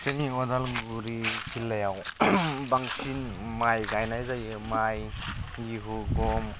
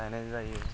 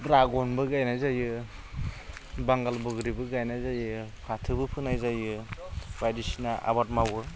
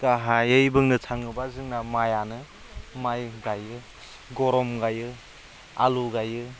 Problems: none marked